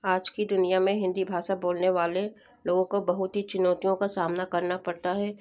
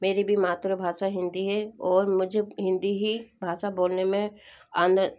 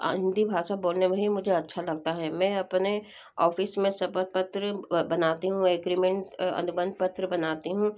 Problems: background sounds at intervals